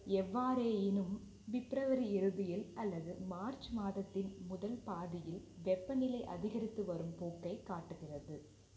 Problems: low volume